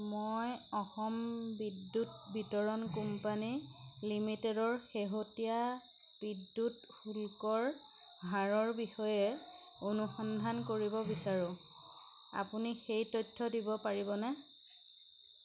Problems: constant background noise